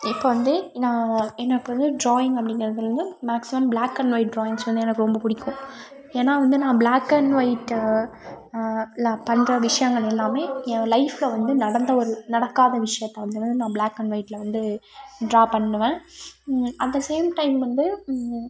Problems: background sounds at intervals